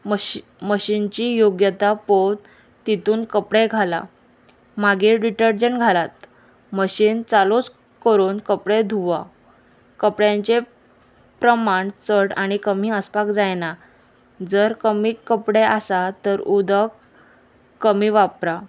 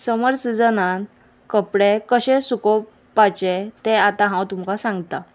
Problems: constant background noise